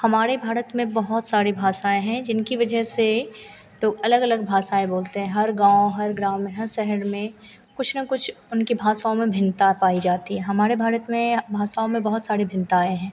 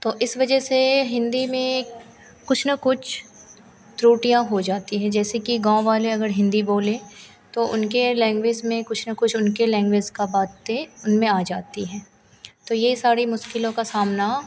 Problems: constant background noise